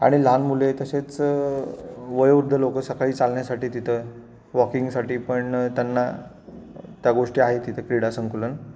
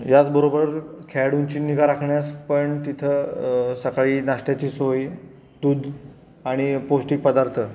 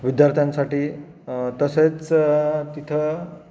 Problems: none marked